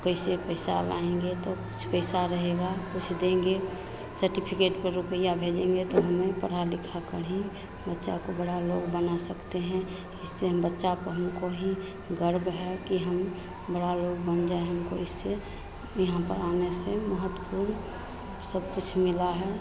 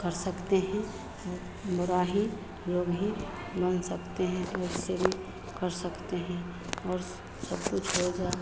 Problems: constant background noise, background conversations at intervals